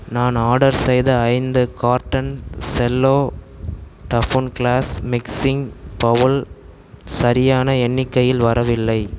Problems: none marked